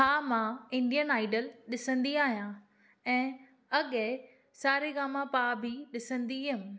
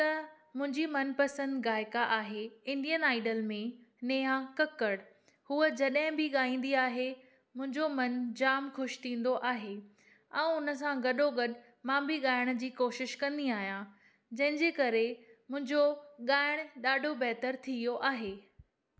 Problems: none marked